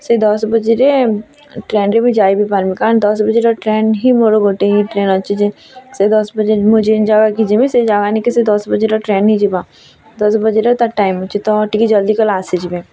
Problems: constant background noise, continuous background conversations